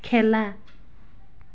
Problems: background sounds at intervals, background conversations at intervals